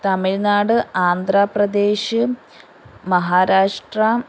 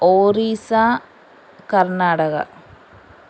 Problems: constant background noise